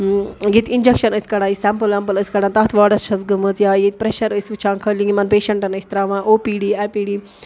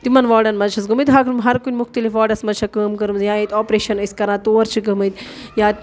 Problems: none marked